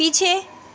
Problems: none marked